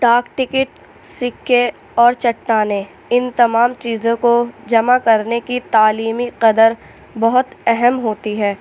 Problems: constant background noise